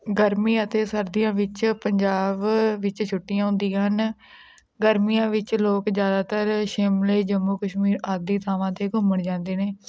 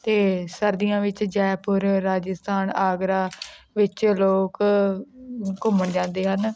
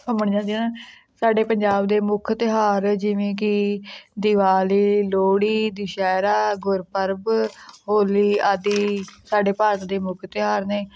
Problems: background sounds at intervals